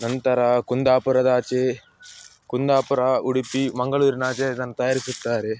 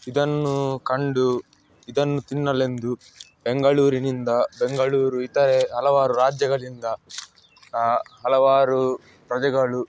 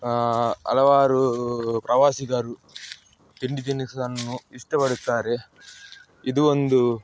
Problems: background sounds at intervals